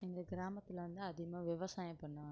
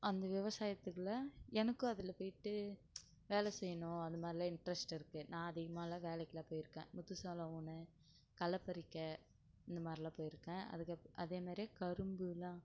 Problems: low volume